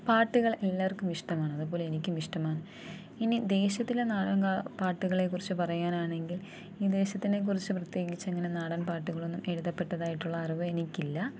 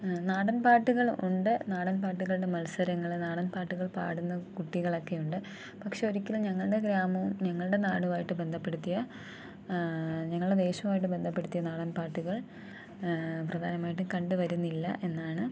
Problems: low volume